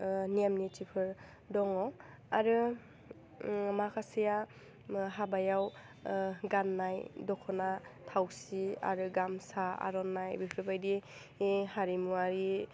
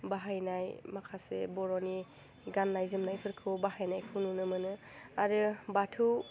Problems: none marked